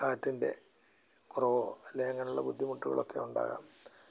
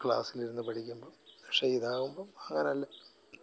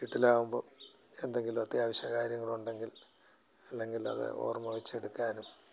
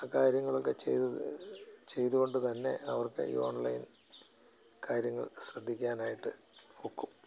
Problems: none marked